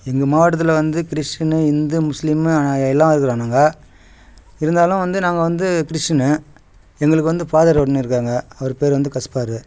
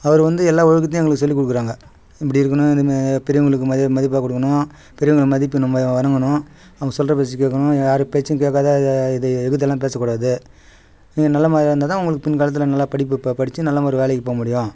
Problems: none marked